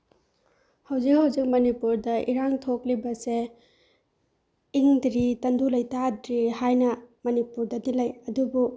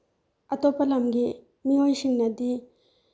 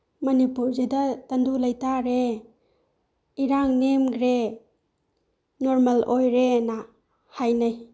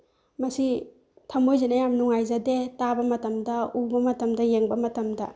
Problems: none marked